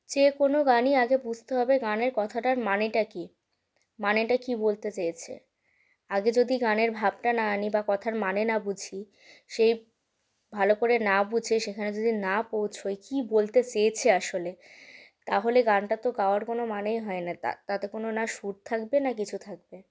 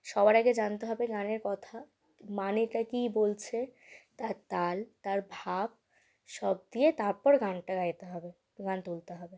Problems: constant background noise